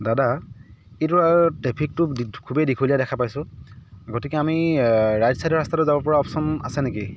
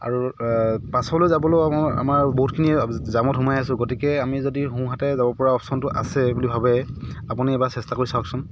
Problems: background sounds at intervals